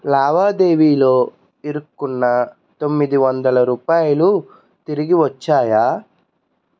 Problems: constant background noise